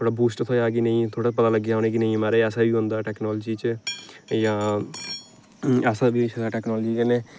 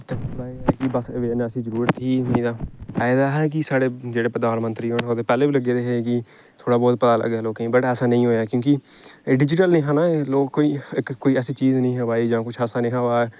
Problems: background sounds at intervals